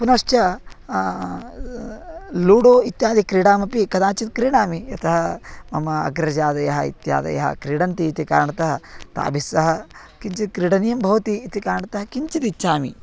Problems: none marked